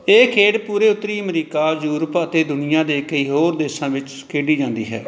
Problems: none marked